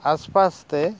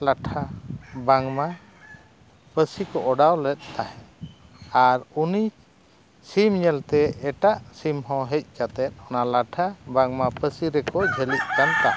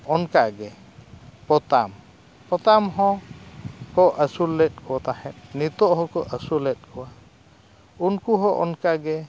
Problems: none marked